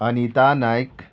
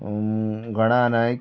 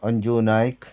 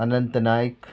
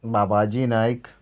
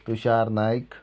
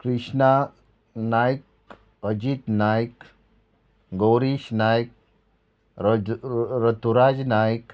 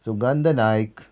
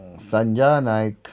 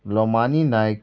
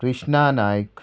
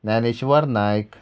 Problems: none marked